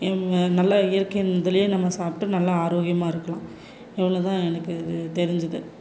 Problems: background sounds at intervals